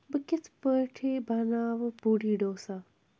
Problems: background sounds at intervals